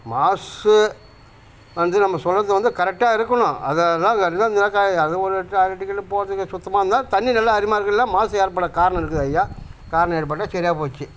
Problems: none marked